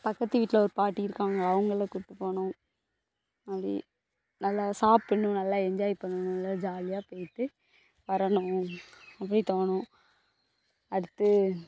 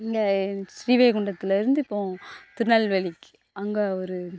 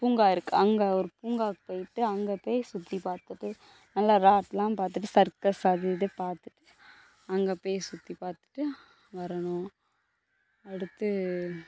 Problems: constant background noise